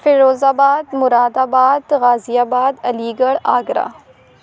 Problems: background sounds at intervals